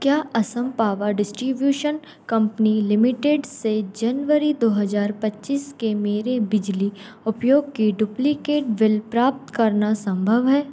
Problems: background sounds at intervals